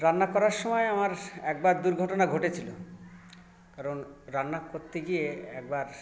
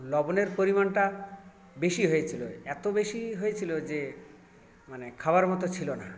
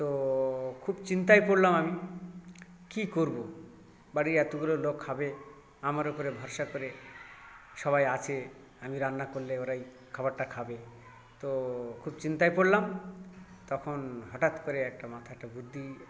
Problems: constant background noise, continuous background conversations